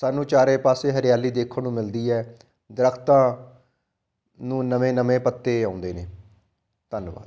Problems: background sounds at intervals